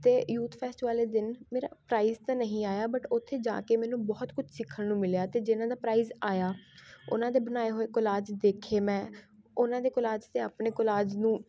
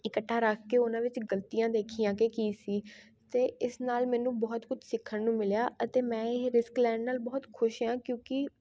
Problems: constant background noise